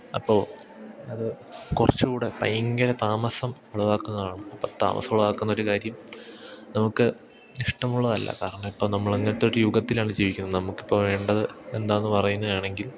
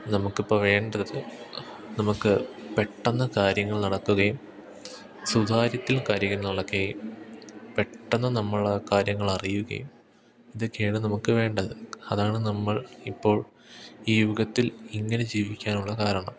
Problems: background sounds at intervals, background conversations at intervals